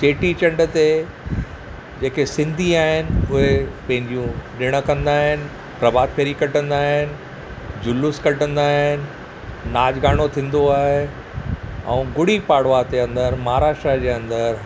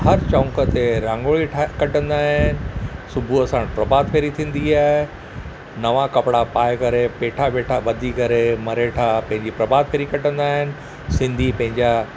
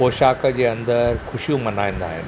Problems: none marked